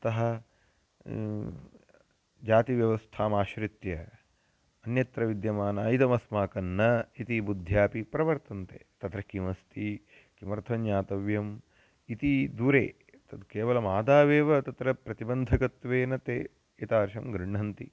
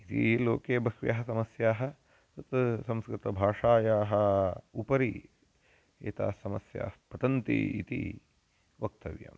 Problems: constant background noise